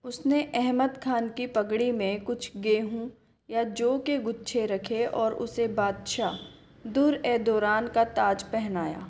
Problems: none marked